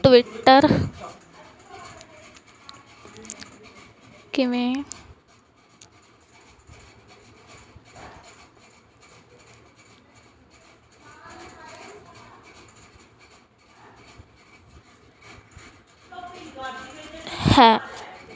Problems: constant background noise, continuous background conversations